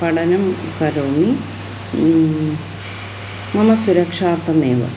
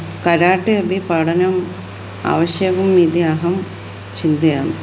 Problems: constant background noise